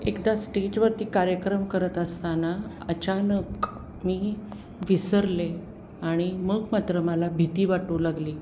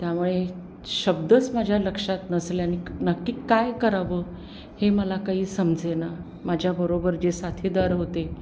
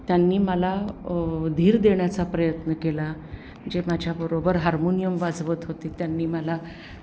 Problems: background sounds at intervals